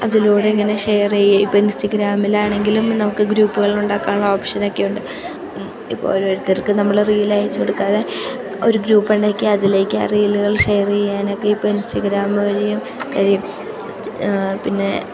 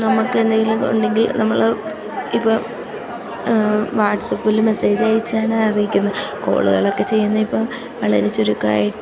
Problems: constant background noise, low volume